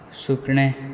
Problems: constant background noise